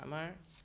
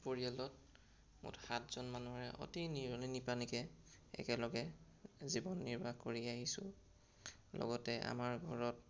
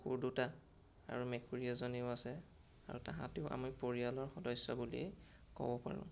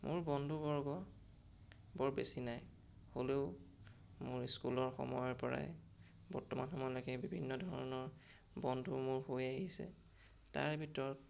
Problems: none marked